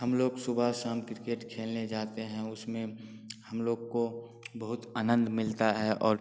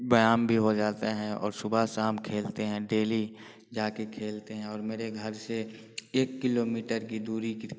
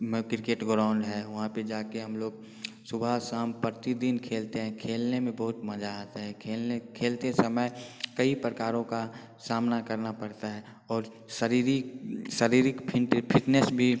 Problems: constant background noise